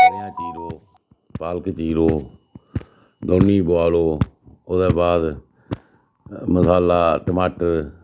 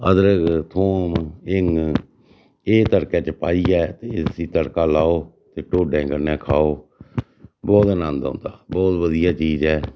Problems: none marked